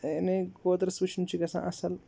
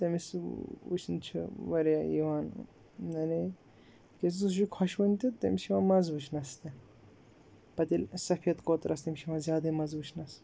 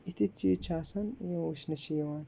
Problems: background sounds at intervals